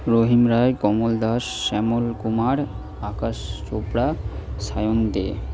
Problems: constant background noise